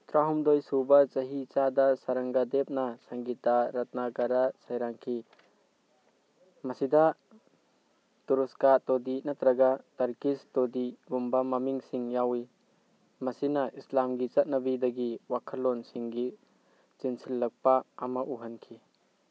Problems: none marked